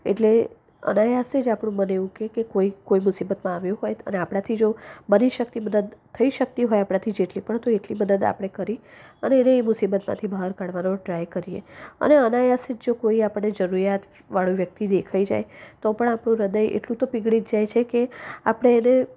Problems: none marked